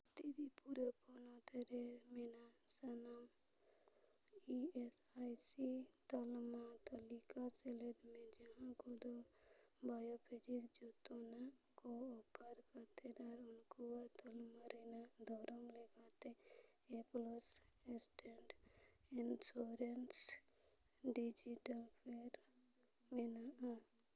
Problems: low volume